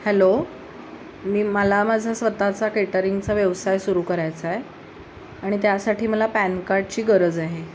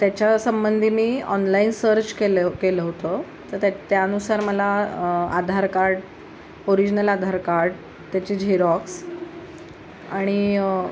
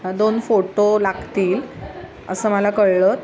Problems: constant background noise